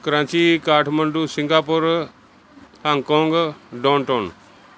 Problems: background sounds at intervals